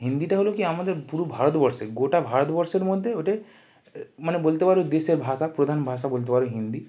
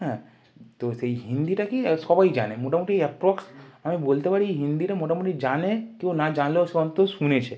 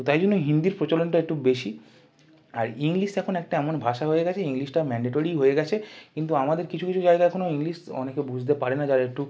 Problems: background sounds at intervals